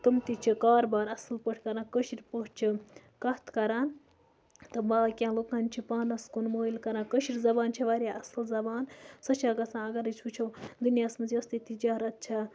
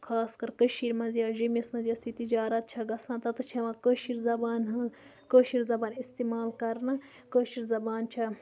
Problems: background sounds at intervals, background conversations at intervals, low volume